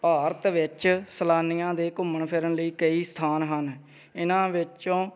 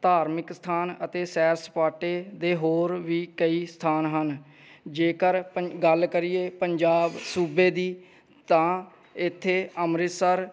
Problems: none marked